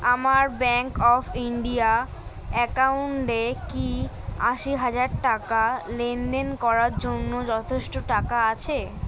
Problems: none marked